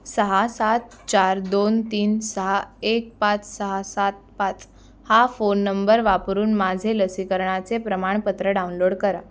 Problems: none marked